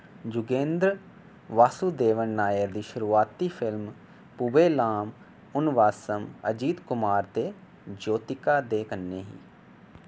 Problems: none marked